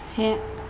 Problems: constant background noise